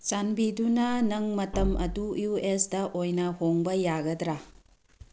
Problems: background sounds at intervals